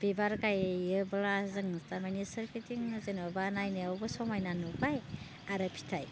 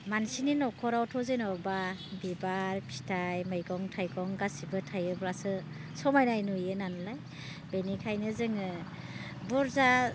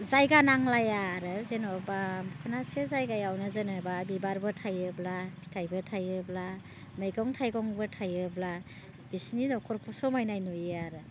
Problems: constant background noise